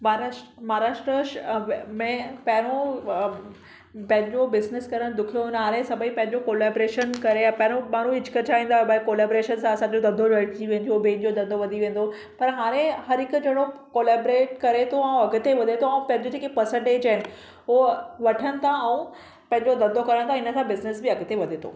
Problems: none marked